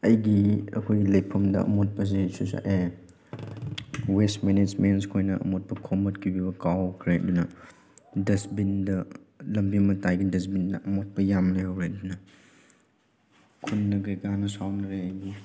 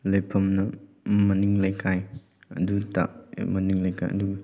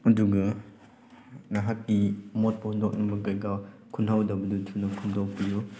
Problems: background sounds at intervals